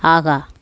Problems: none marked